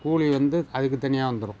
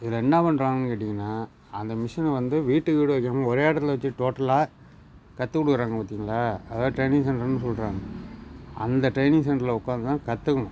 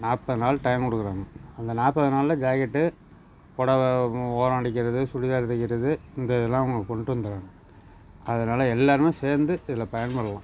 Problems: background sounds at intervals